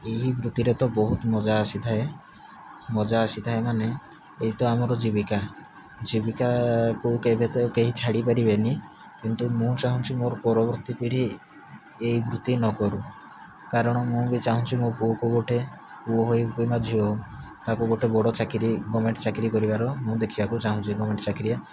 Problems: low volume